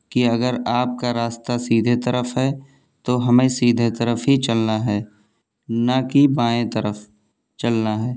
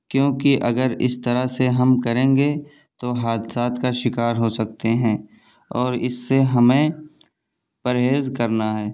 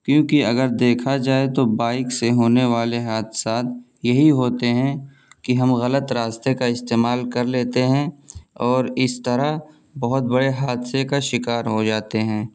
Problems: background sounds at intervals